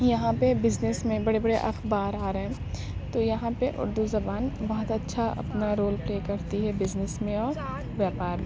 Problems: constant background noise